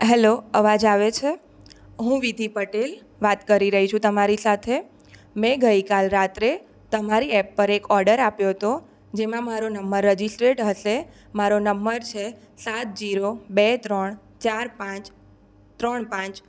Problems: none marked